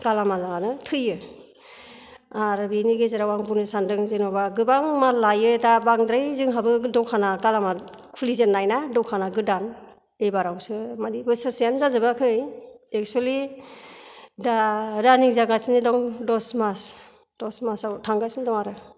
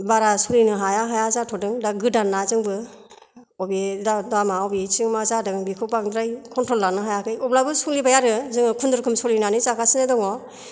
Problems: none marked